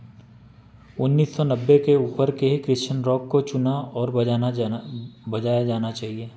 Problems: background sounds at intervals